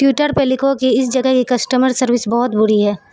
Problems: constant background noise